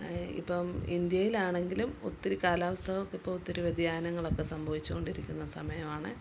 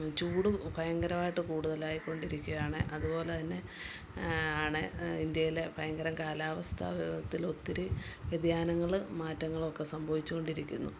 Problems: background sounds at intervals